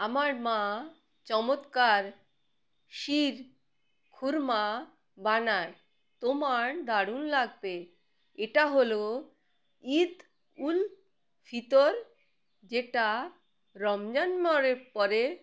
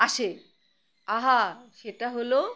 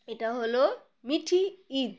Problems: background sounds at intervals